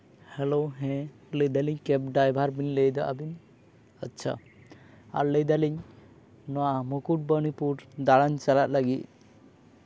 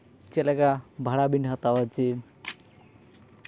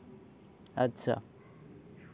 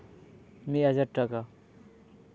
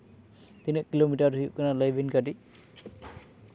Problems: none marked